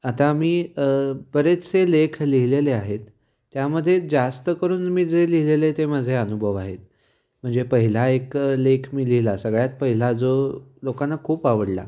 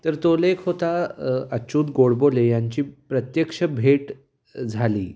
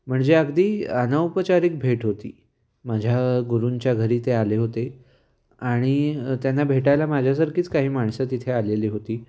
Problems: background sounds at intervals